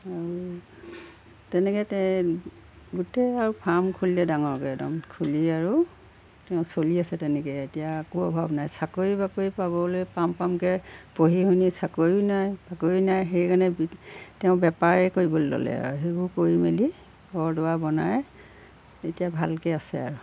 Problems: background sounds at intervals